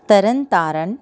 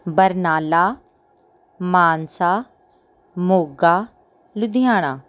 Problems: none marked